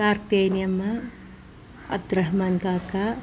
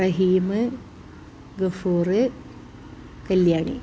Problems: background sounds at intervals